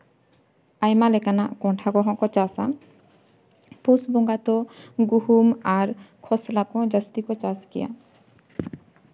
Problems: none marked